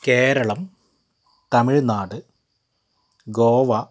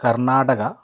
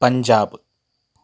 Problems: background sounds at intervals